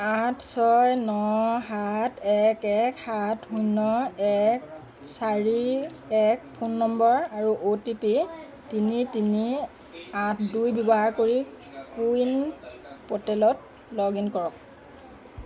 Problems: none marked